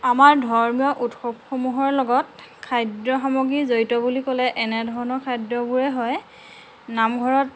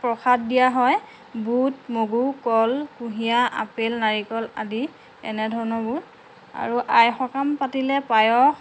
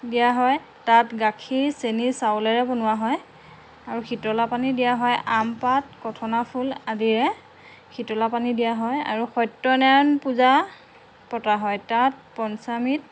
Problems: constant background noise